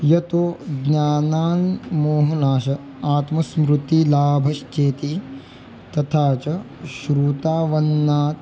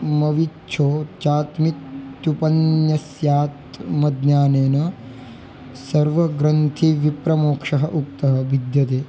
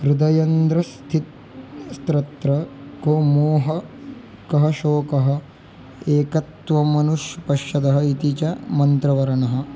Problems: constant background noise, background conversations at intervals